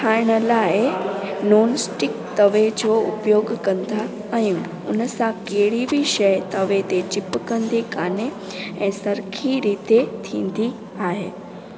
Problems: constant background noise